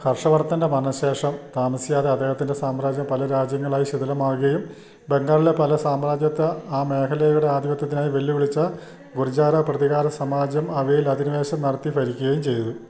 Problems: low volume